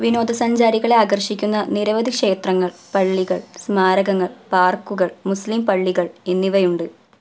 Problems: none marked